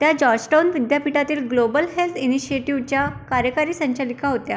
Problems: background sounds at intervals